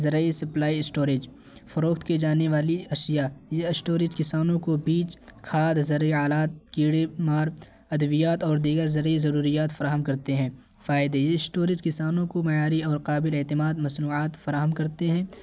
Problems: constant background noise